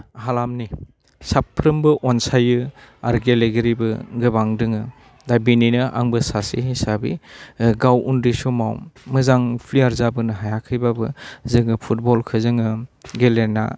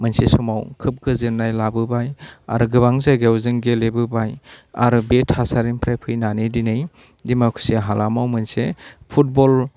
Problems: low volume